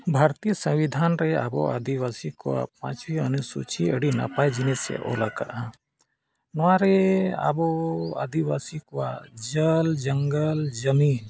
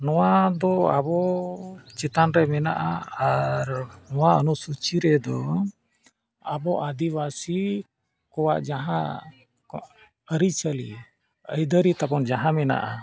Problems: background sounds at intervals